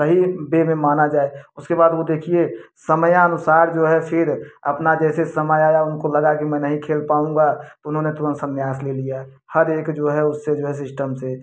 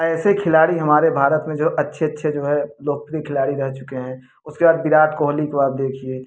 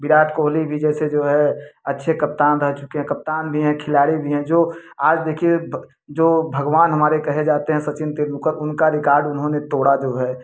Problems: none marked